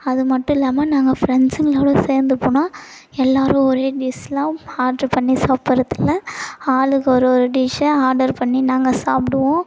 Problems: background sounds at intervals